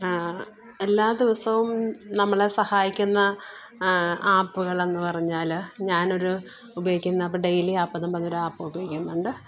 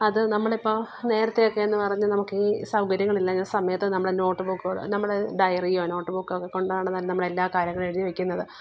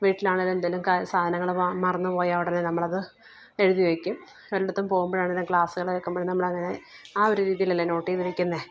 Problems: background sounds at intervals, low volume